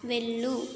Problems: none marked